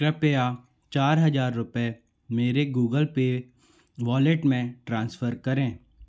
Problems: background sounds at intervals